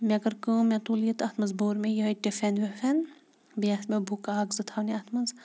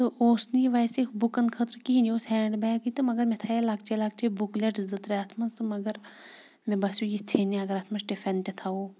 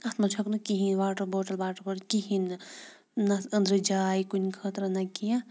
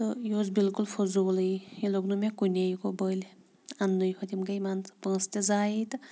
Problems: background sounds at intervals